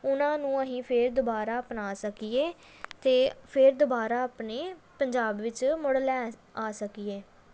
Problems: none marked